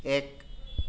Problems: none marked